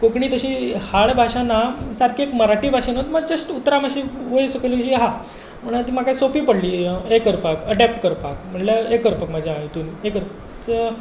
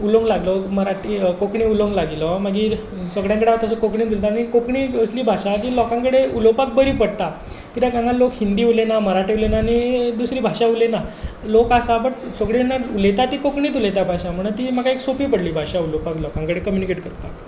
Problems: none marked